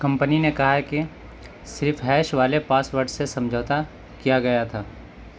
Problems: none marked